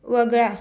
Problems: constant background noise